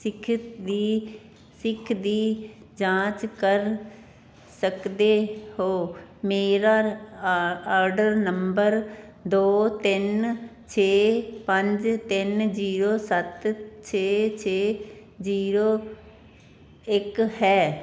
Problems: background sounds at intervals